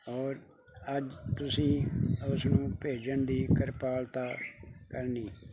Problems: constant background noise